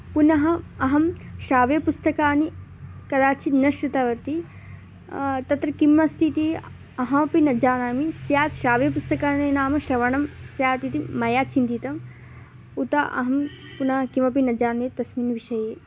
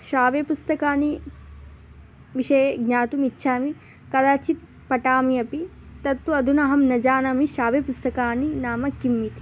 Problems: none marked